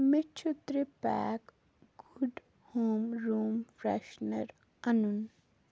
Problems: background sounds at intervals, low volume